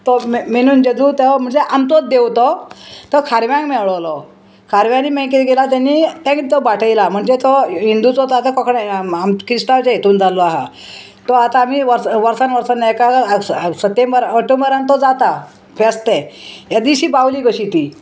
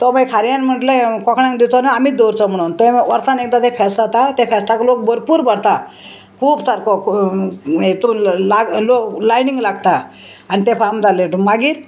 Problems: constant background noise